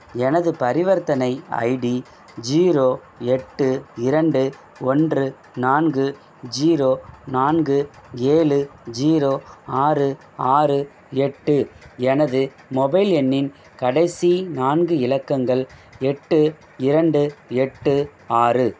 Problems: none marked